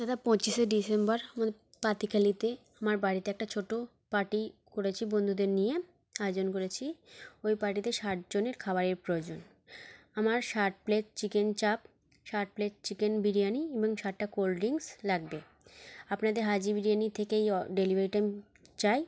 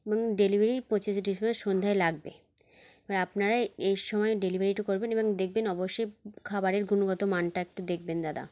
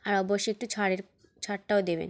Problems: constant background noise